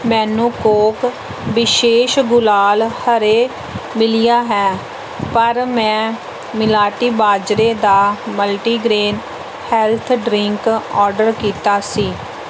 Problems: constant background noise